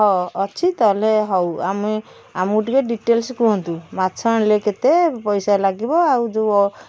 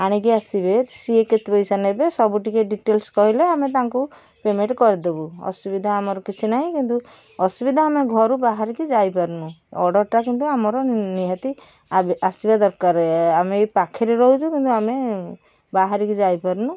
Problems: background sounds at intervals